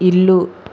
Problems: constant background noise